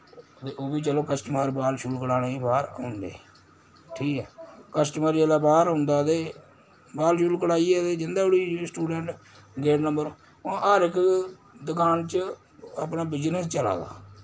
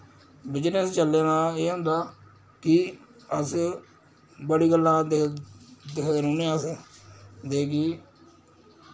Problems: constant background noise